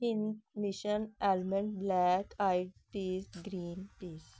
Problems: none marked